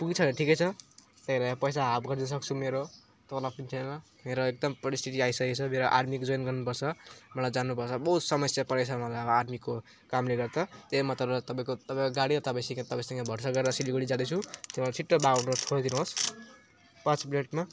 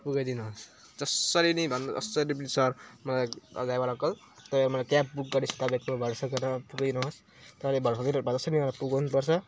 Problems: none marked